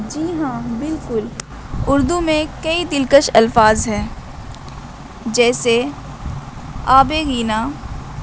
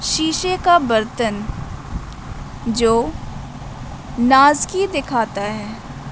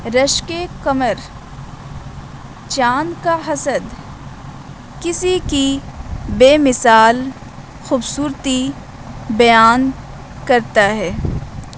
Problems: constant background noise